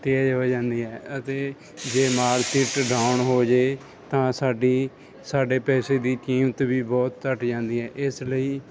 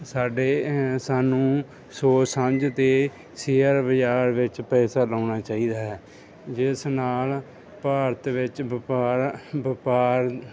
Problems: none marked